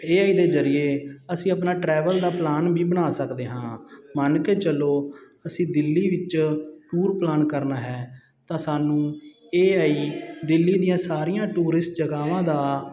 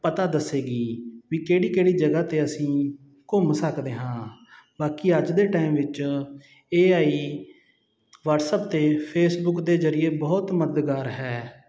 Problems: continuous background conversations